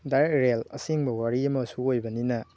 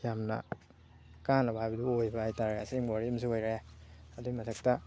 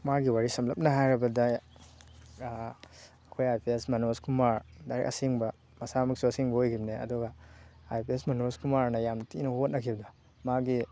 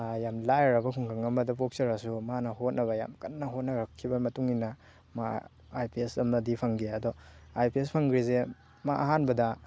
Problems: constant background noise